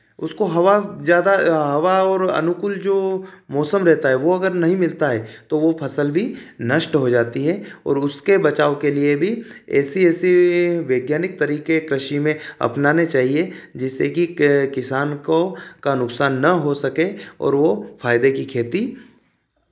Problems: none marked